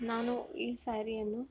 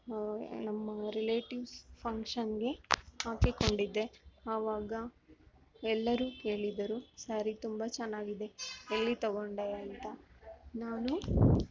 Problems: background sounds at intervals